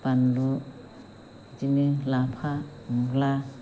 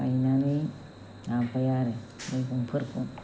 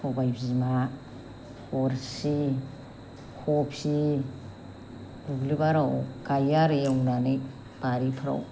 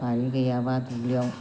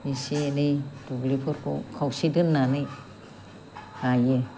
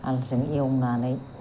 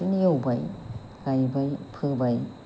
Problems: constant background noise